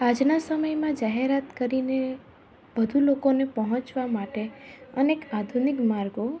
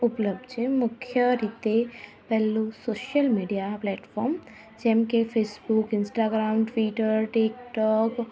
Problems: none marked